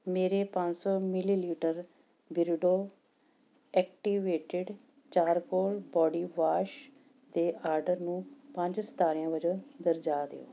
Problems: none marked